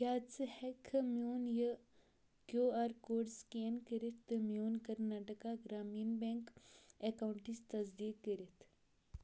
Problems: low volume